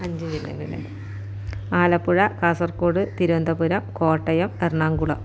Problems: background conversations at intervals, low volume